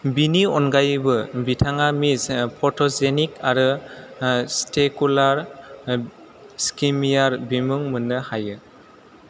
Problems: none marked